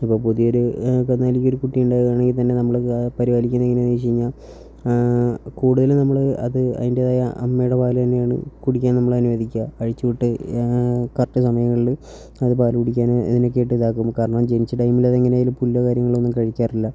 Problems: low volume